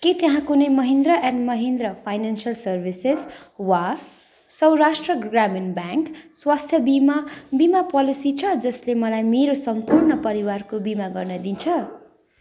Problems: constant background noise